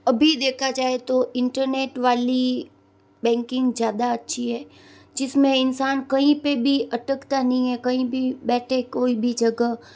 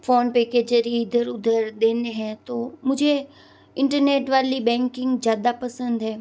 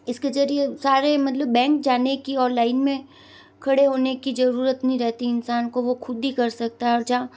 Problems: none marked